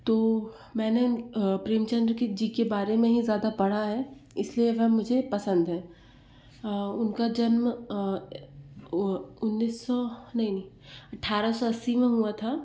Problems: none marked